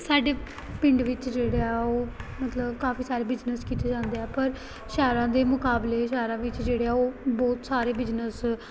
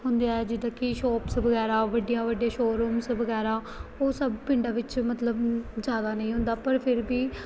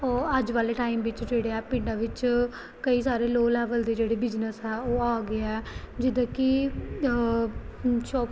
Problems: background sounds at intervals